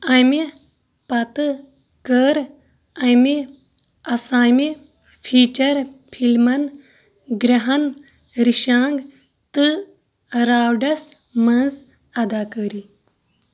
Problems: background sounds at intervals